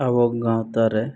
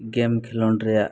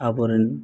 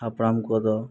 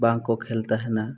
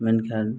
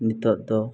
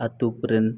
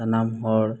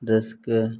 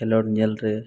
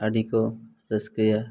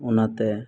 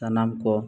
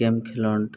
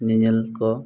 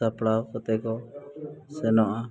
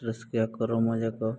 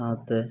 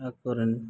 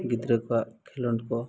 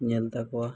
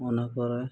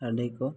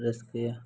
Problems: background conversations at intervals